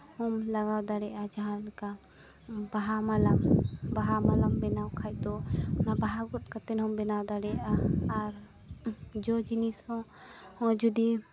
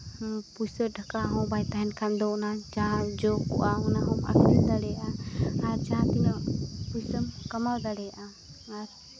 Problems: constant background noise